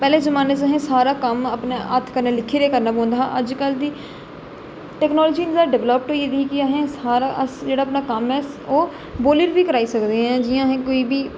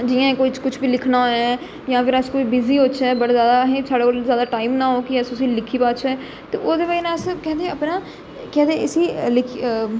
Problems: echo